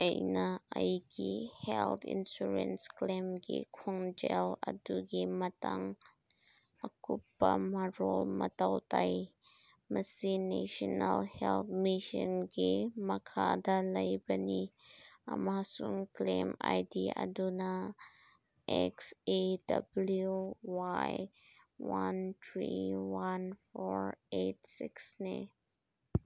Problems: none marked